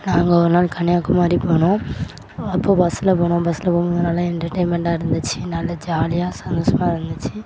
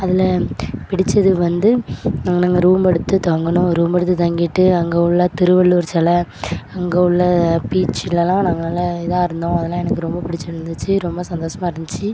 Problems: background sounds at intervals